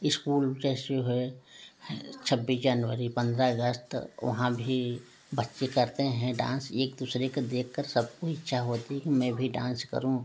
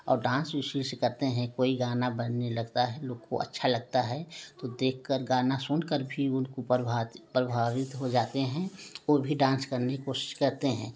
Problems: none marked